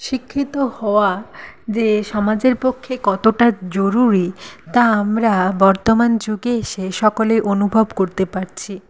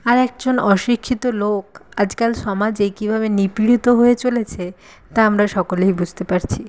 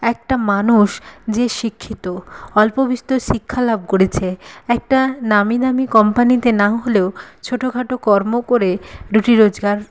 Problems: none marked